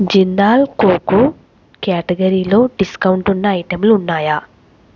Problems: constant background noise